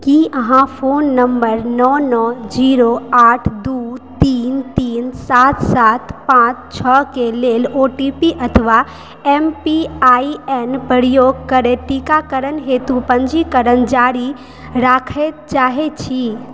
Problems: background sounds at intervals